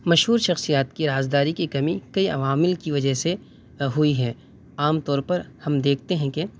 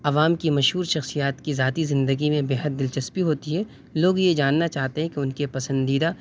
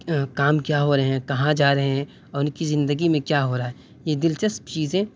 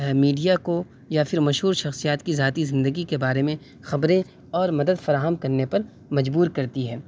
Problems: background sounds at intervals, background conversations at intervals